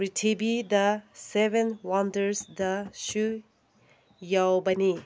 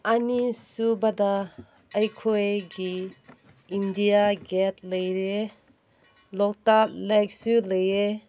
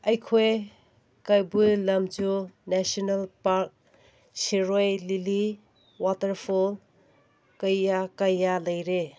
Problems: none marked